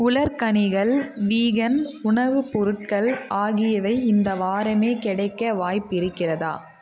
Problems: constant background noise